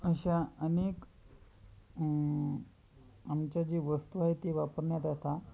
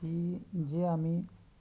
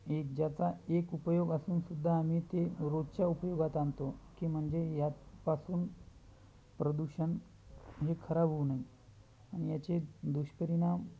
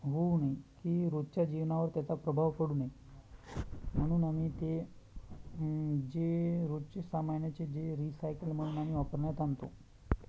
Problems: none marked